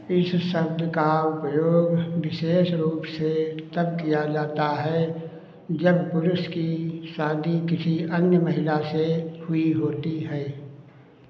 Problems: constant background noise